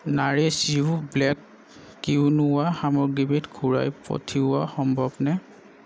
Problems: none marked